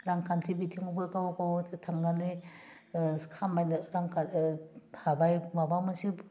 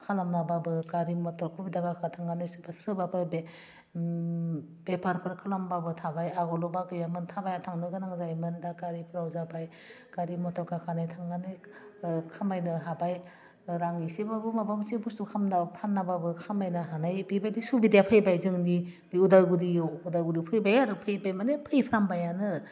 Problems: constant background noise